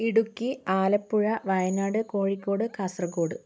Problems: none marked